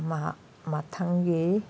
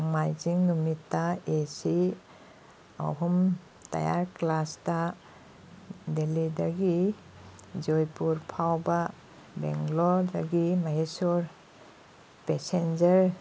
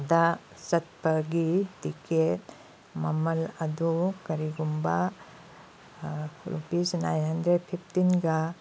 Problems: background sounds at intervals